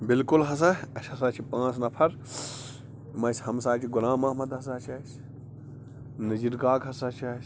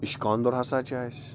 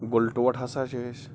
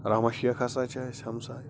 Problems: constant background noise